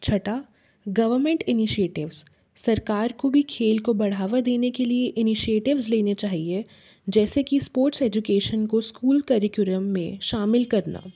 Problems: background sounds at intervals